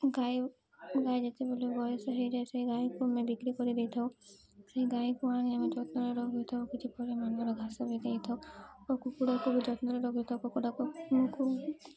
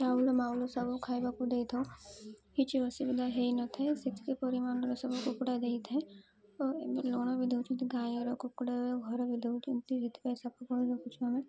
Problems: background sounds at intervals, low volume